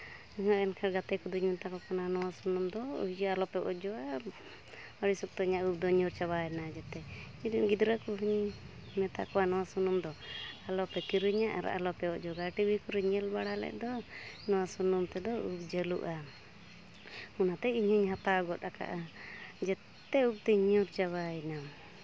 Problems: background conversations at intervals